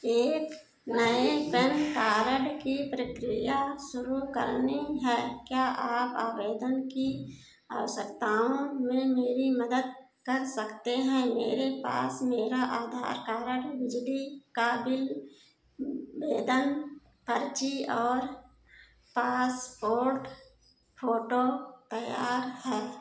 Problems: none marked